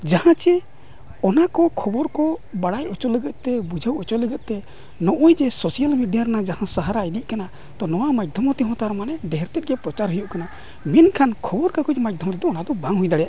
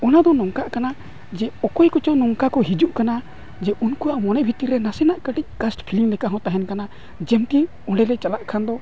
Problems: constant background noise